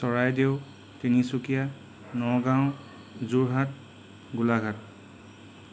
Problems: none marked